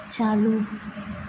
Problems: constant background noise, low volume